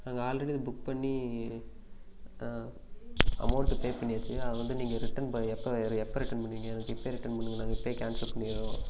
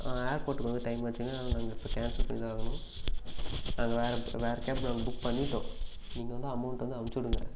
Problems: background sounds at intervals